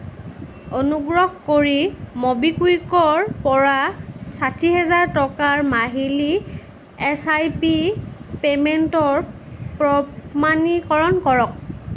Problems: constant background noise